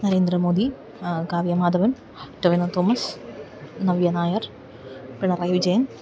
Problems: background sounds at intervals